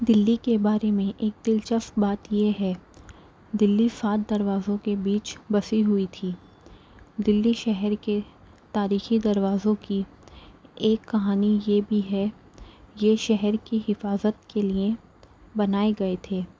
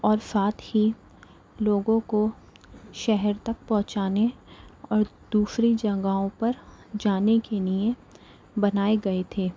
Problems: none marked